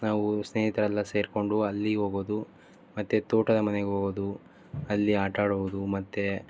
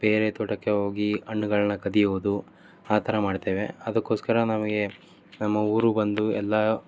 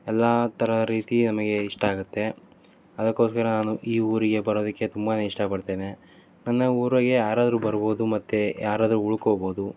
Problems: none marked